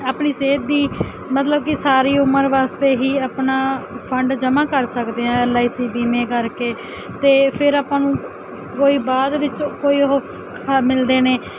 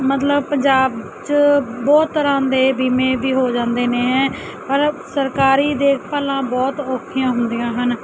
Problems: constant background noise